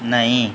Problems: none marked